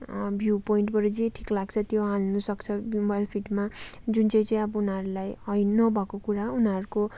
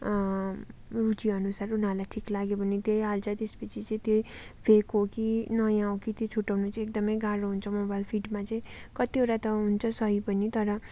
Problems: background sounds at intervals